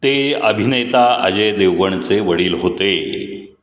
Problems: none marked